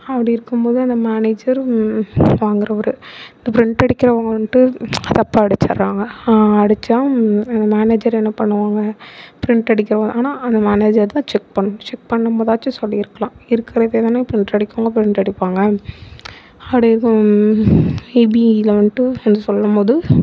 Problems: background sounds at intervals